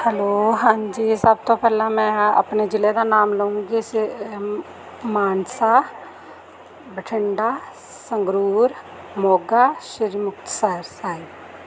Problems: none marked